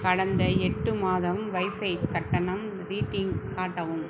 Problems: background sounds at intervals, low volume